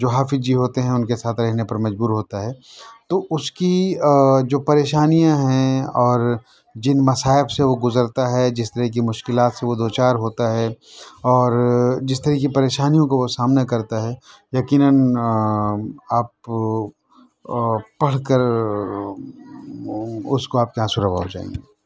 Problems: background sounds at intervals, continuous background conversations